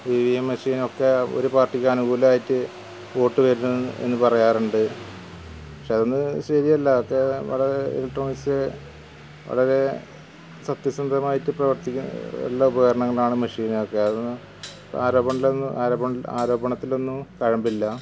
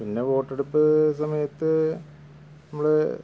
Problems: none marked